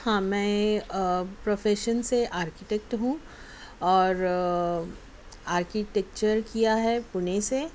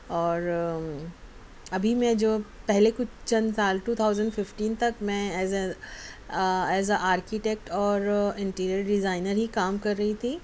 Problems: none marked